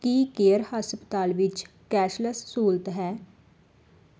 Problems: none marked